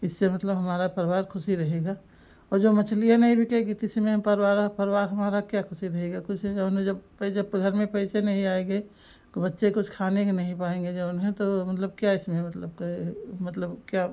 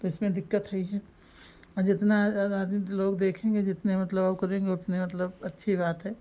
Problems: background sounds at intervals